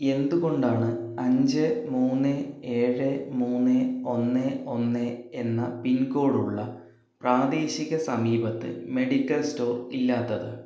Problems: low volume